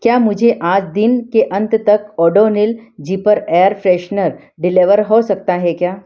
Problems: background sounds at intervals